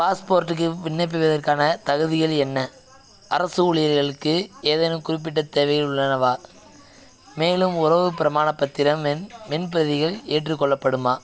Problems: background sounds at intervals, background conversations at intervals